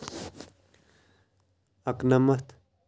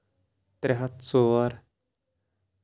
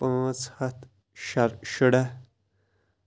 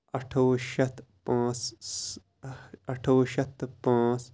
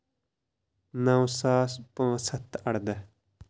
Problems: none marked